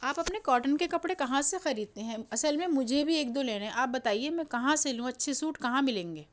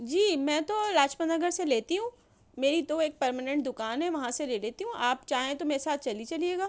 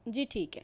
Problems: background sounds at intervals